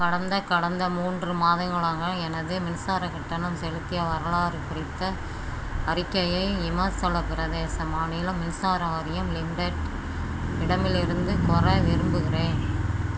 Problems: background sounds at intervals